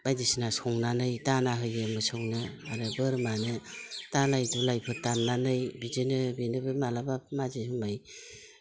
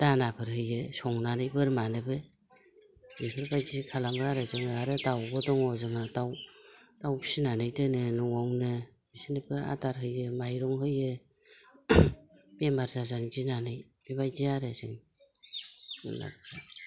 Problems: none marked